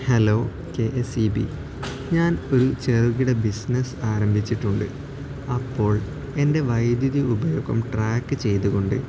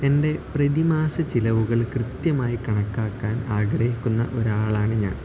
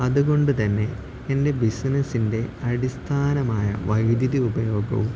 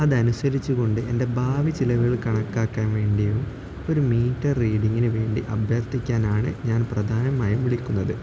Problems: constant background noise, low volume